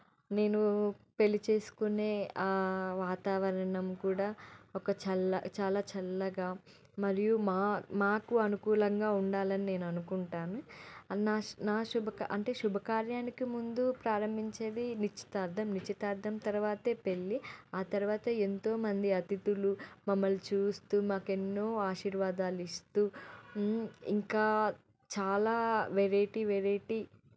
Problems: none marked